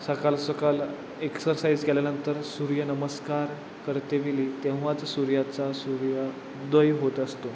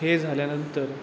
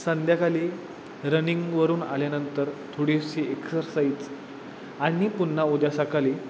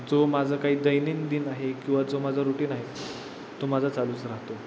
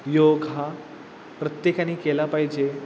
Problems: constant background noise